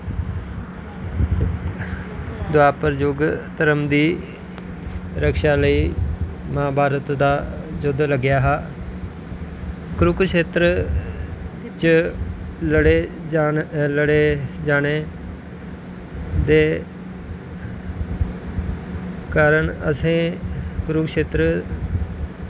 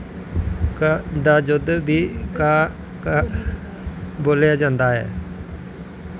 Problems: constant background noise